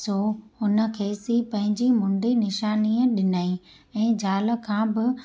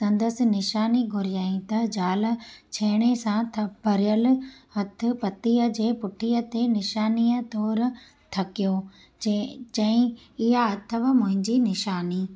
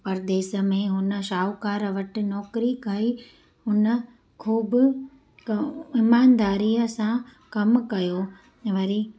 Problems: constant background noise